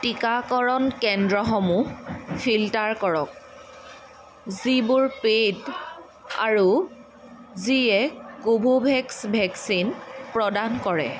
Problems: constant background noise